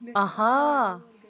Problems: background conversations at intervals